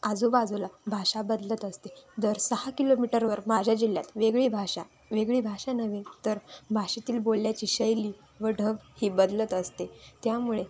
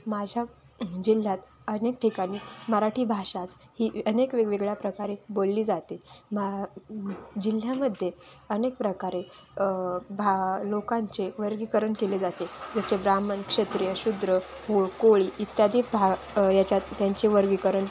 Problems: none marked